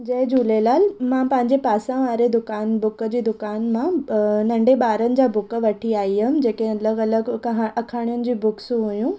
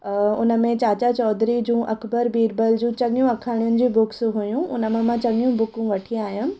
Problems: none marked